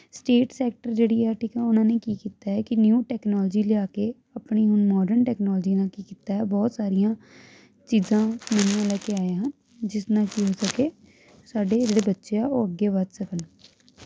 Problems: constant background noise